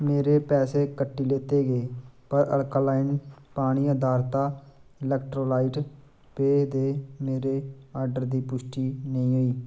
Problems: none marked